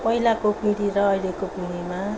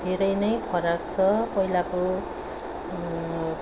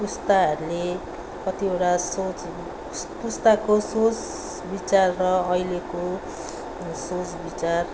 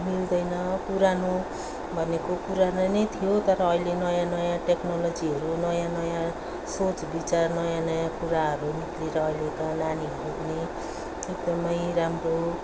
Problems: background sounds at intervals